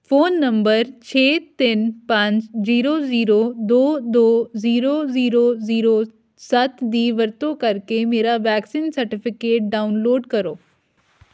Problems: background sounds at intervals